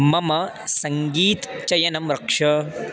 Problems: constant background noise